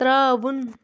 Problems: constant background noise